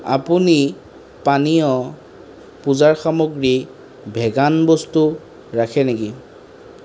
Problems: none marked